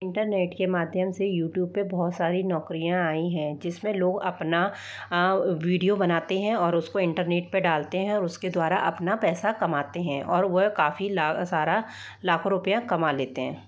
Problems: background sounds at intervals